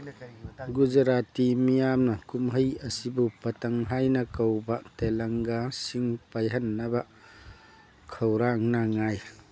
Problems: background sounds at intervals, background conversations at intervals